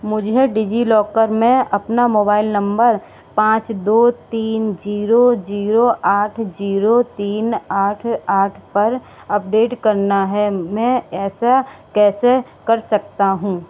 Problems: background sounds at intervals